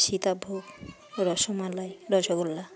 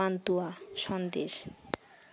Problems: none marked